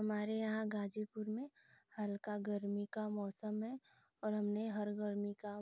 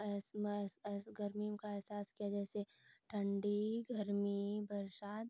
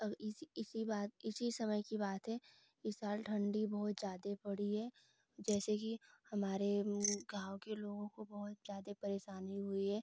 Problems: constant background noise